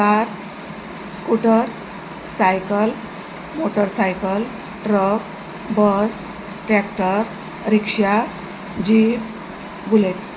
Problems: constant background noise